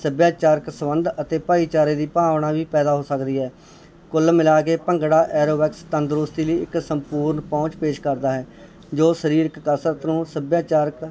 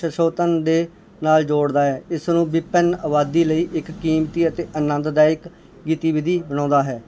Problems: background conversations at intervals